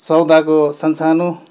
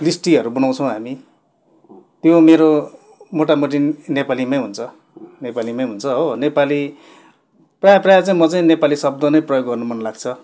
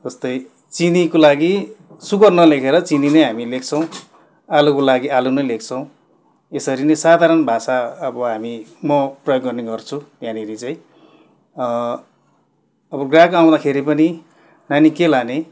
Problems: constant background noise